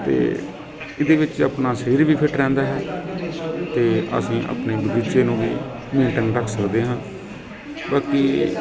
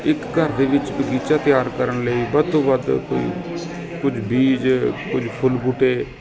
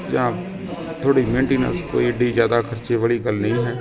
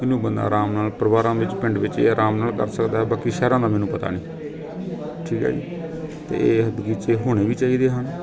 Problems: constant background noise, continuous background conversations